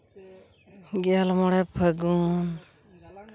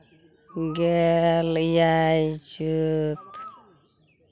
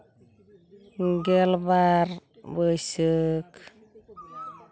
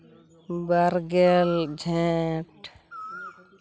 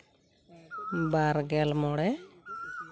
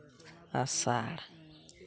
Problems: background sounds at intervals, continuous background conversations